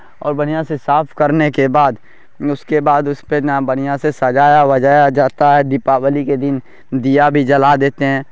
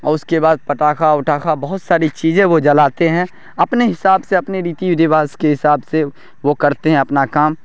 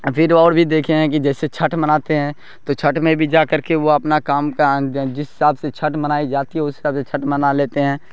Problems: constant background noise